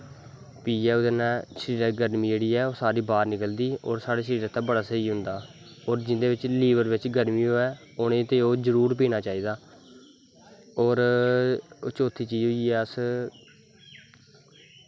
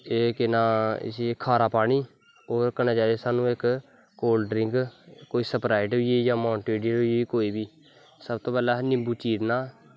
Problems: background sounds at intervals